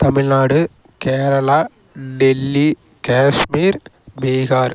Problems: background sounds at intervals